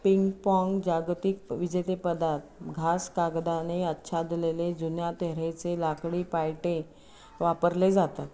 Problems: constant background noise, background conversations at intervals